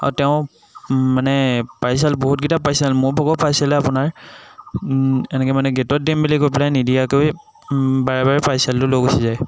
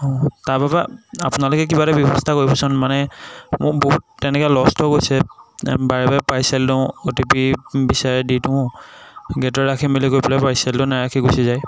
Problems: none marked